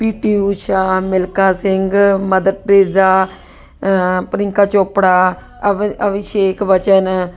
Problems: constant background noise